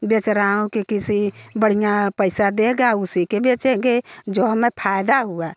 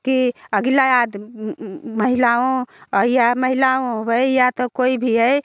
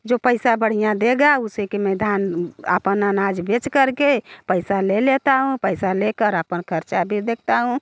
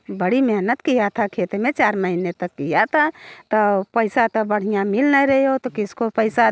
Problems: none marked